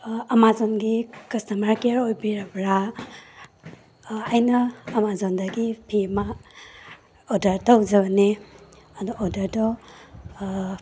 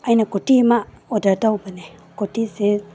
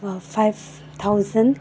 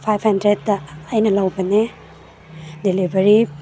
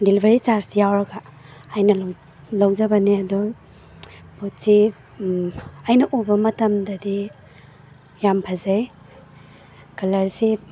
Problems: background sounds at intervals